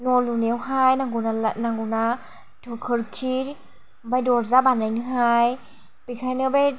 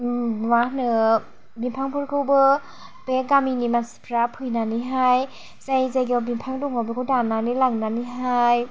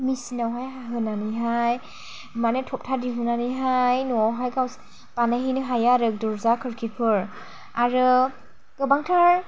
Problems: low volume